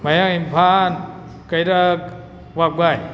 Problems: background sounds at intervals